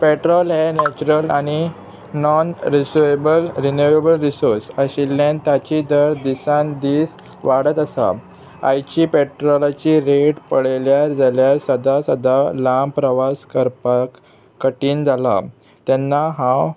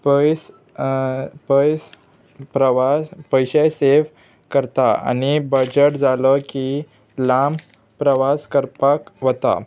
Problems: constant background noise